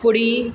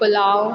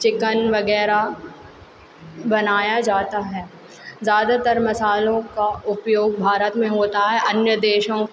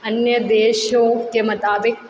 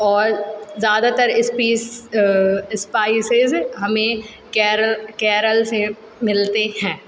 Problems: none marked